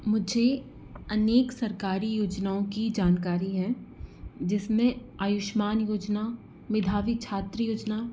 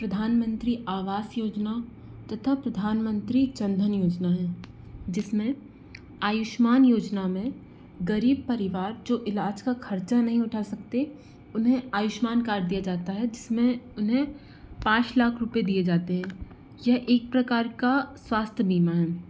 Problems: none marked